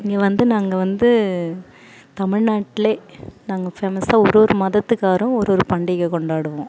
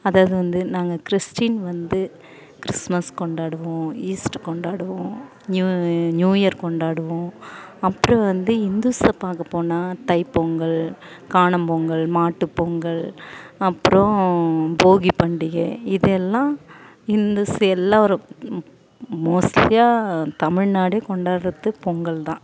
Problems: none marked